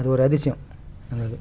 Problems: background sounds at intervals